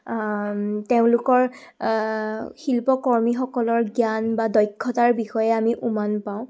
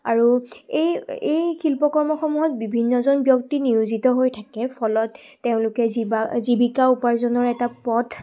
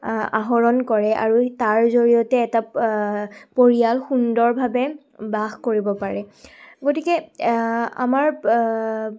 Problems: background sounds at intervals